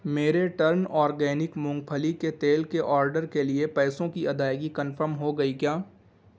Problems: background sounds at intervals